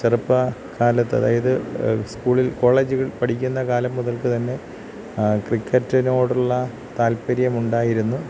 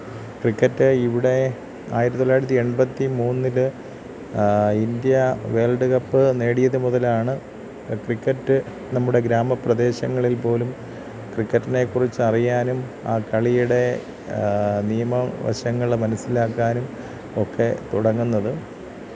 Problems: constant background noise, low volume